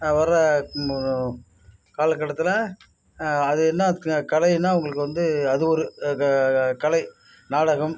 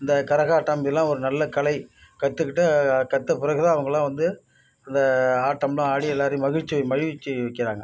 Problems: constant background noise